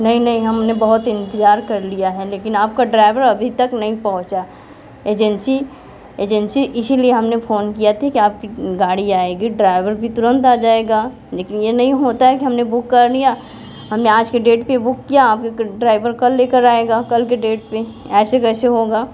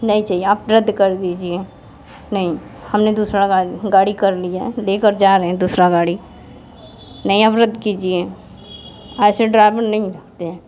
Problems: constant background noise, continuous background conversations